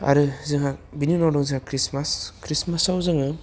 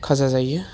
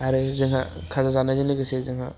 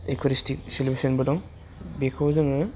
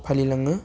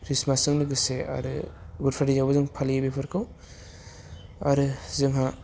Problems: none marked